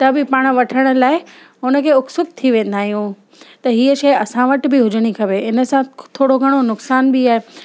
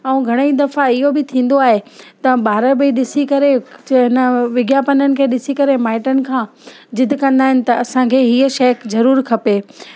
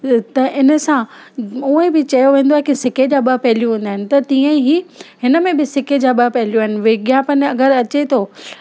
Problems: constant background noise